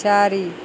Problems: none marked